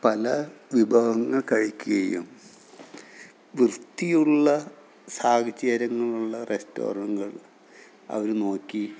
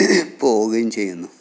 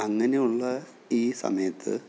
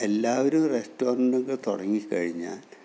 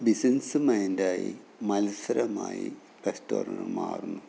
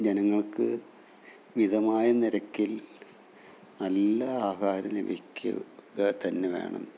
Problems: low volume